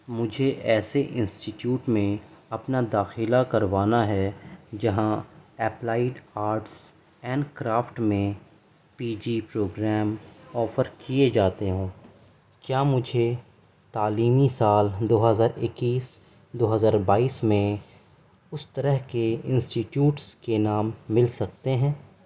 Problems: background sounds at intervals, background conversations at intervals